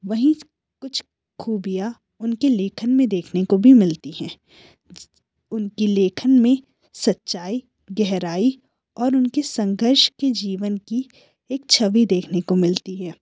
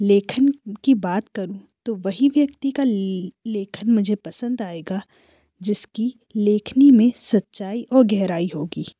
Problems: background sounds at intervals